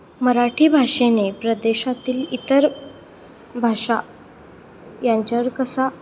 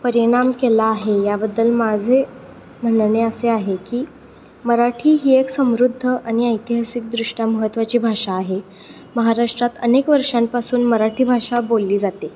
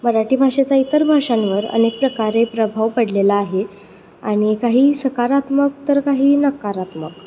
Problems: none marked